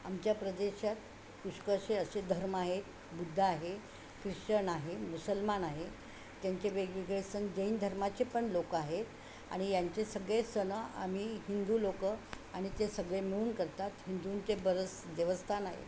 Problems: constant background noise